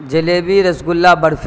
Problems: constant background noise